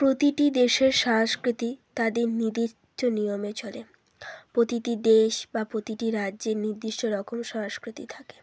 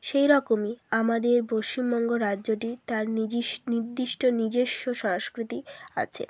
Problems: none marked